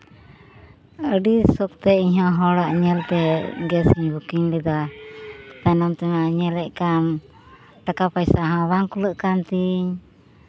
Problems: none marked